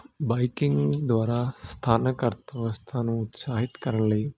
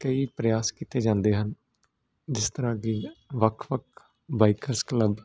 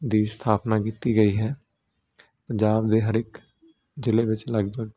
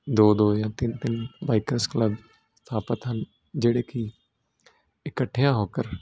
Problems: none marked